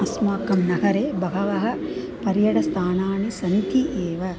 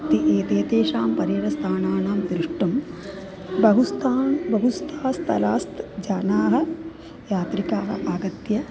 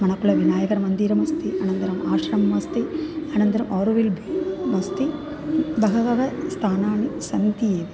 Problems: constant background noise